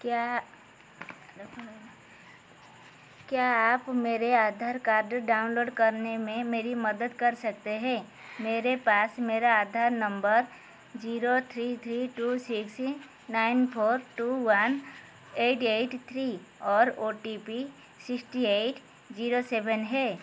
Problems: constant background noise